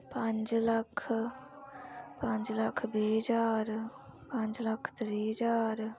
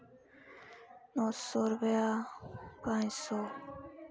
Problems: constant background noise